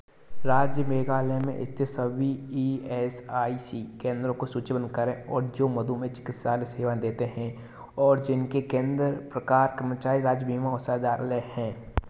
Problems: constant background noise